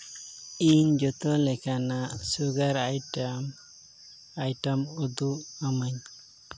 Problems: background sounds at intervals